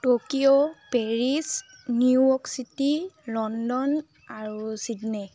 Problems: constant background noise